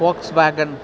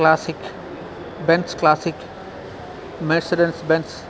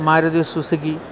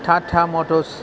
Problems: constant background noise